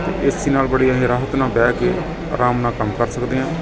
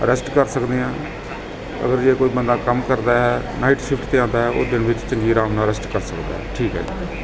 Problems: constant background noise